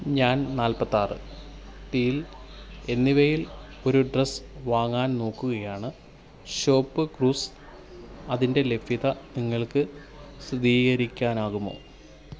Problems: low volume